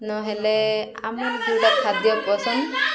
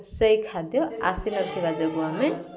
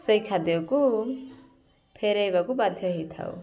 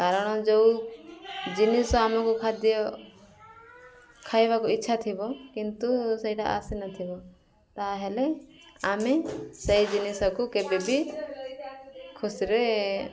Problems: constant background noise, continuous background conversations